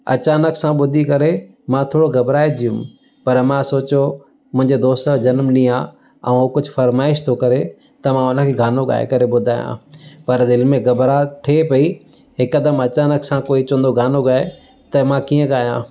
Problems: constant background noise